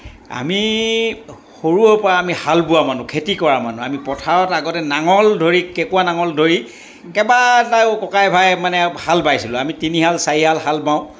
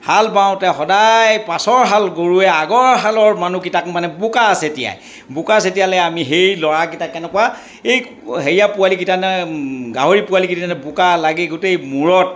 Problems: background conversations at intervals